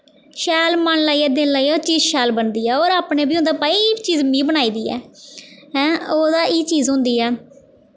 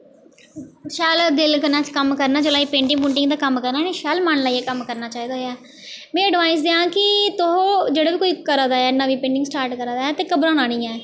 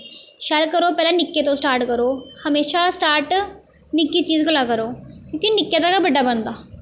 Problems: none marked